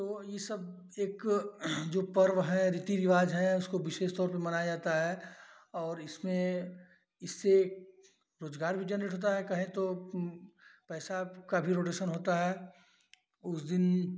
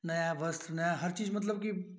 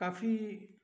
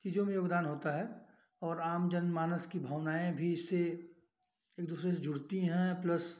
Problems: background sounds at intervals